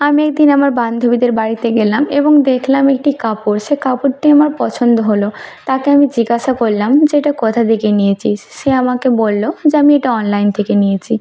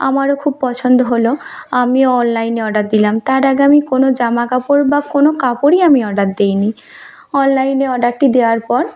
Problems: none marked